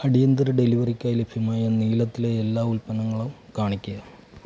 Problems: low volume